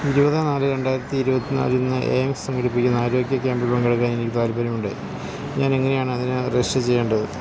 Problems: constant background noise